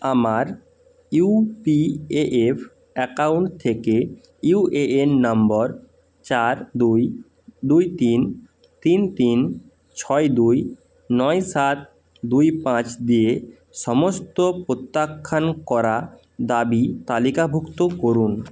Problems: constant background noise